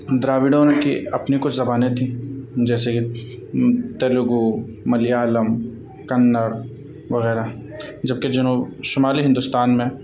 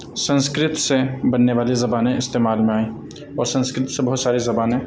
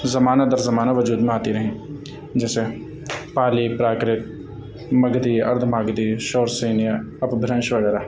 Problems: constant background noise